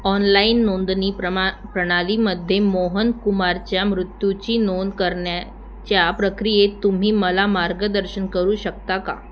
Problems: none marked